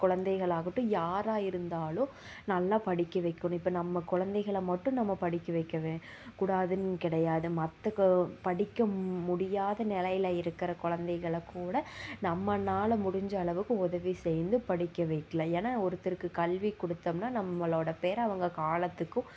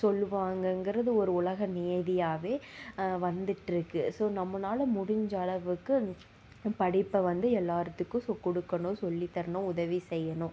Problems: low volume